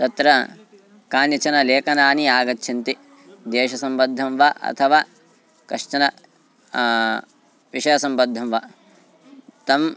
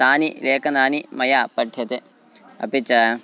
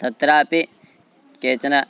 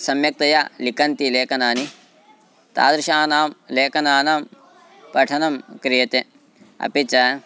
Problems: constant background noise, continuous background conversations